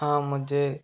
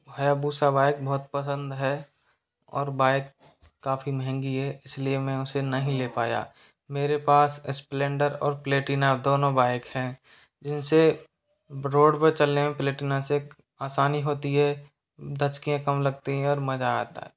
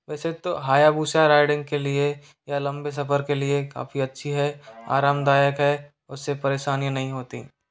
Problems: constant background noise